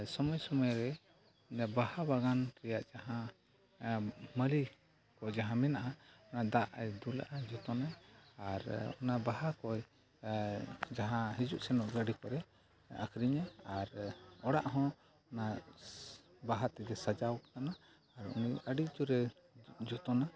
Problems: background sounds at intervals, low volume